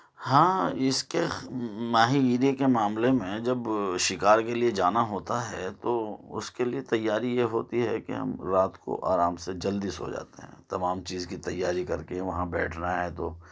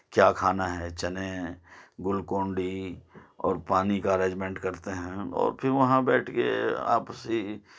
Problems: none marked